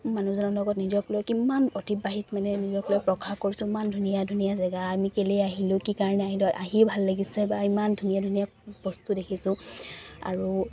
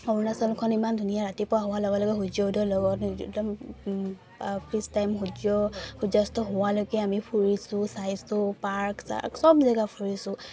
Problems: none marked